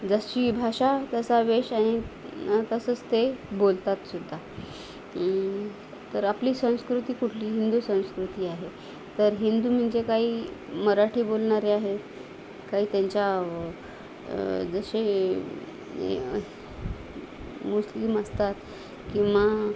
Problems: constant background noise, background conversations at intervals